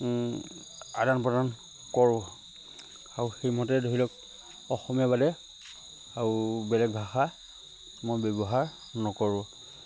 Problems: constant background noise